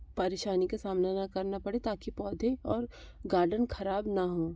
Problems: none marked